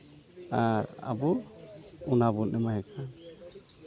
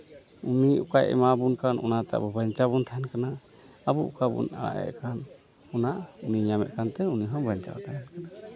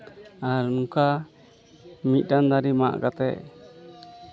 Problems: constant background noise, continuous background conversations